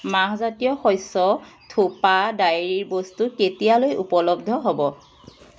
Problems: constant background noise